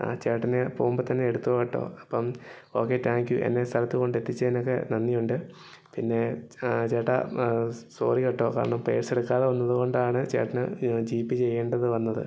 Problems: low volume